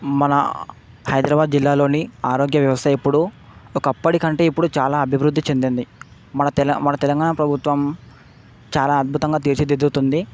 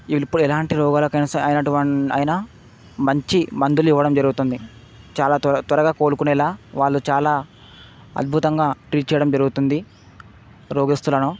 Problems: constant background noise